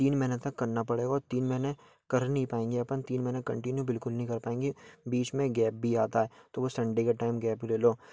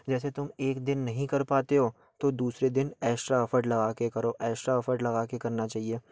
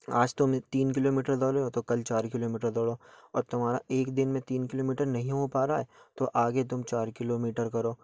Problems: background sounds at intervals